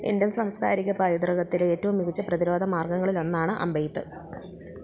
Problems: none marked